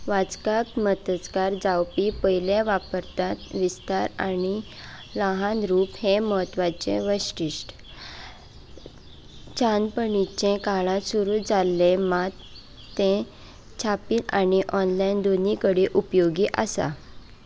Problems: constant background noise